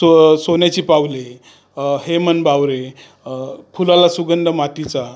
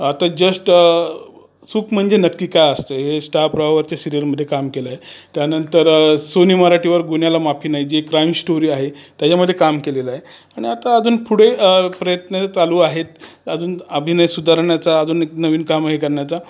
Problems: constant background noise, background conversations at intervals